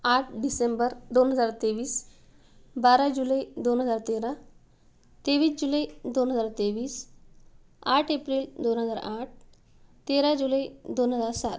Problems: background sounds at intervals